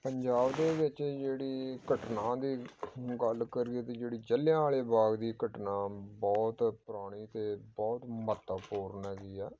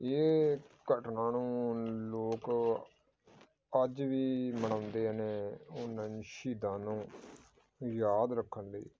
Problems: background sounds at intervals